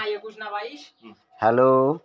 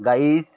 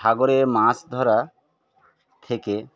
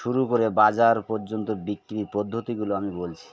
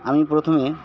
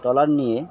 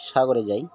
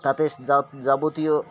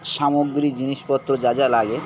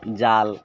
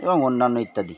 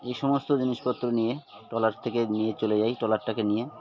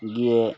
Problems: constant background noise, continuous background conversations